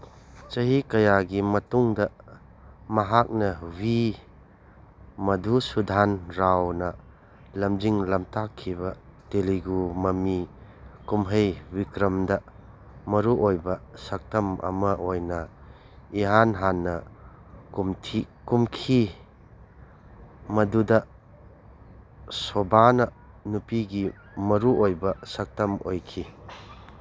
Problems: background sounds at intervals